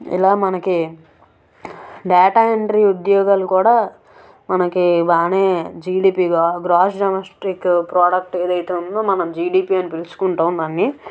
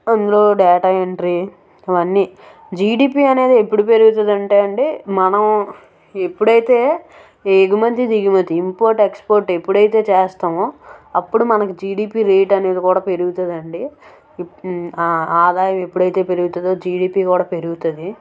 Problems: background sounds at intervals